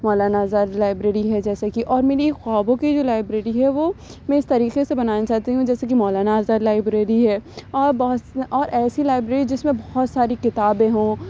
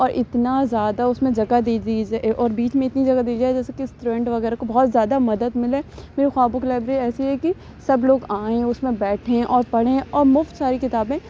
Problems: none marked